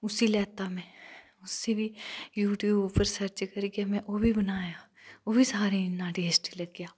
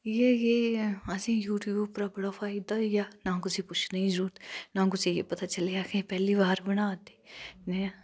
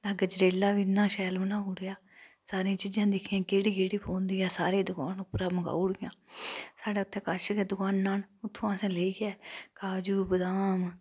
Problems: none marked